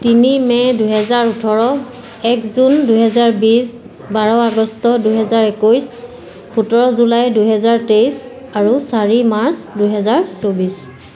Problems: constant background noise, continuous background conversations